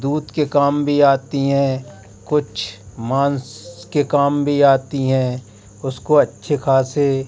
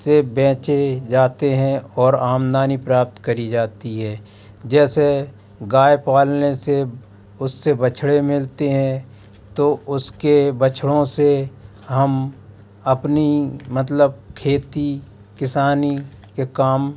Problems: constant background noise